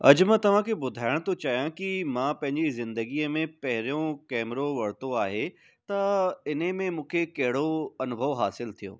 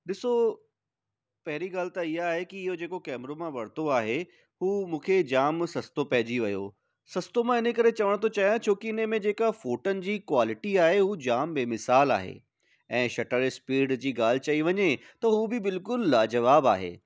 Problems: none marked